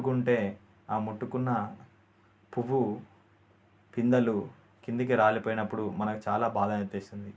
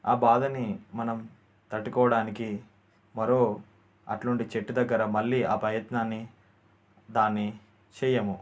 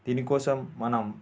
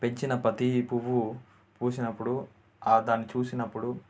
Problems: constant background noise